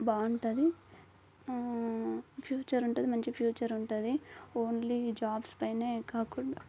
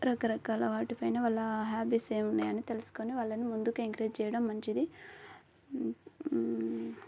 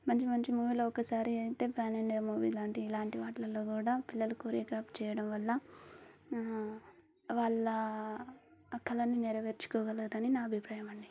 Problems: constant background noise